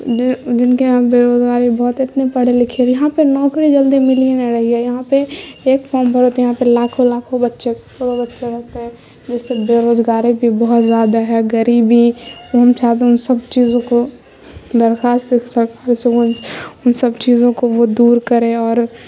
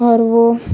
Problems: constant background noise